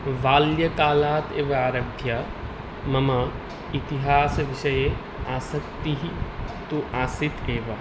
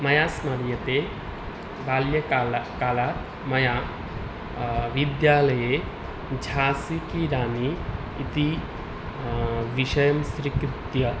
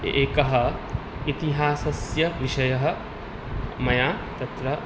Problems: none marked